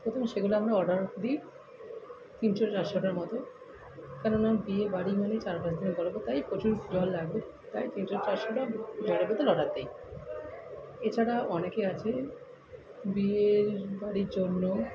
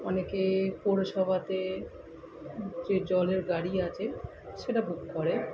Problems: constant background noise, continuous background conversations